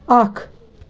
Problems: constant background noise